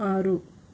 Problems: constant background noise